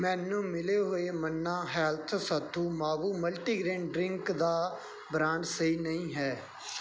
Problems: background sounds at intervals